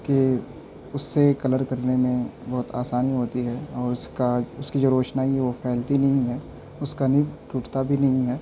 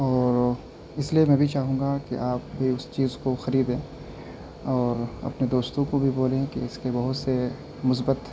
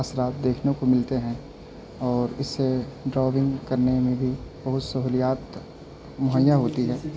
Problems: constant background noise, low volume